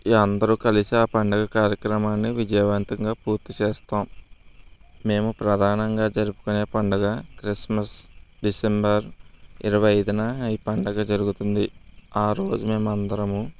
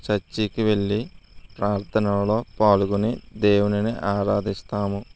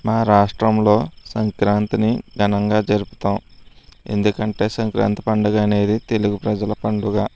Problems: none marked